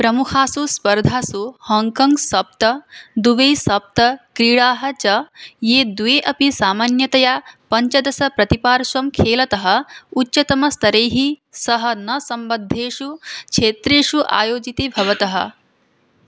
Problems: none marked